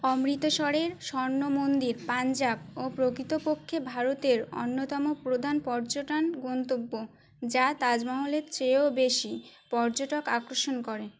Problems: none marked